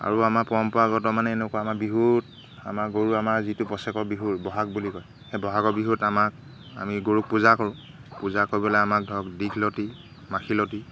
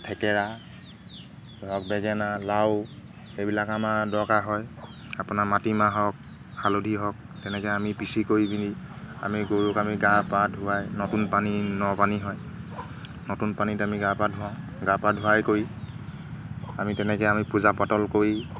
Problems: none marked